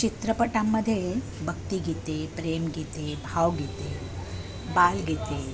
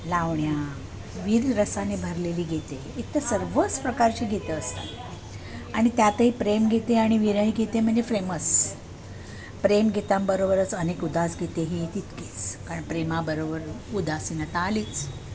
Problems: constant background noise, continuous background conversations